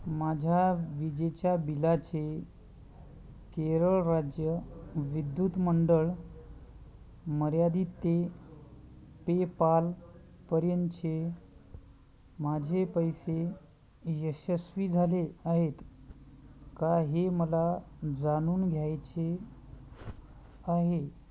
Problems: none marked